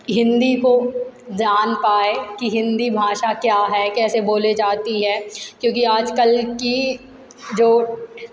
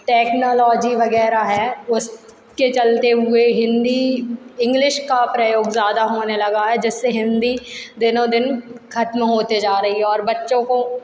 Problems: none marked